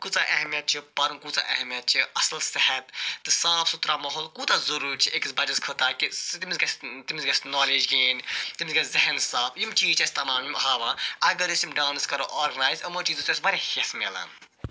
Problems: constant background noise